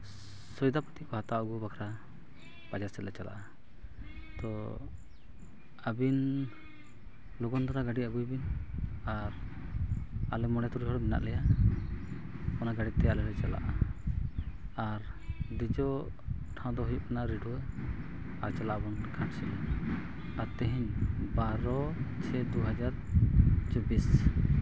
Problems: low volume